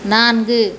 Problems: constant background noise